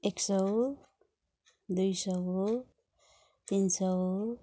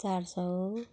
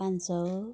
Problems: none marked